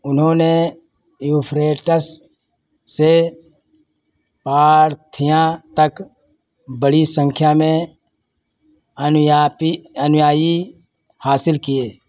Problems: none marked